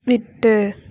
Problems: none marked